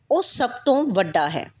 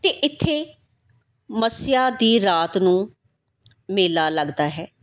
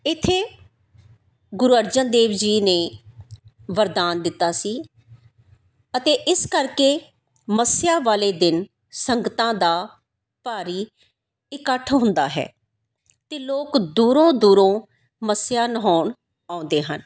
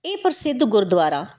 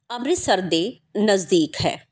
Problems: background sounds at intervals